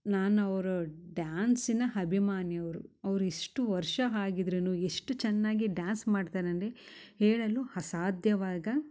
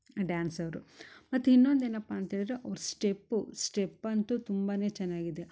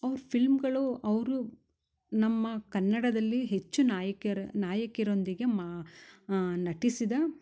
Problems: none marked